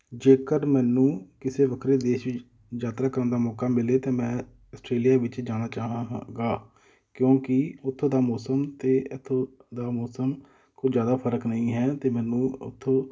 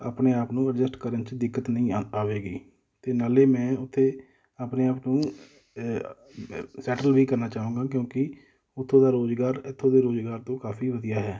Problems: background sounds at intervals, background conversations at intervals